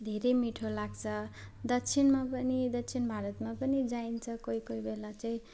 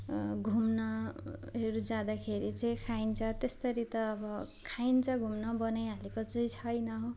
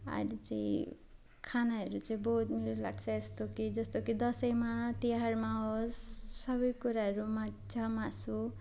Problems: constant background noise, background conversations at intervals